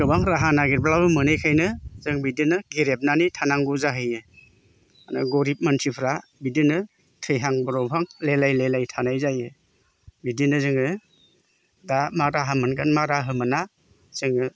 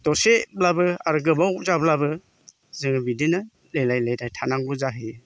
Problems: constant background noise